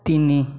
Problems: none marked